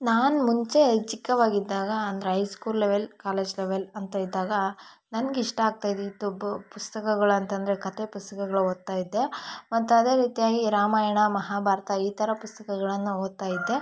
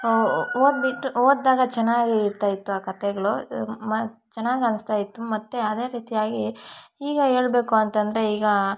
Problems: background sounds at intervals